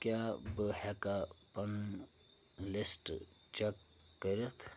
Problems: low volume